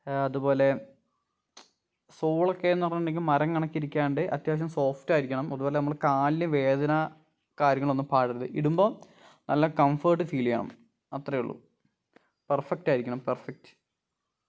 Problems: none marked